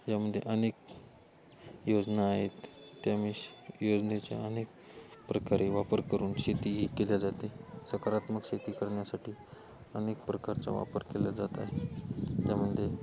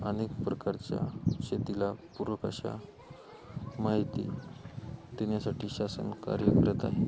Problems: constant background noise